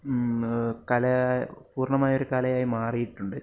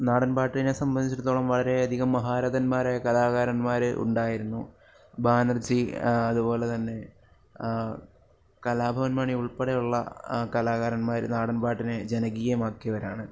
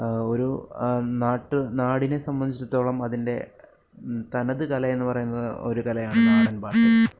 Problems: none marked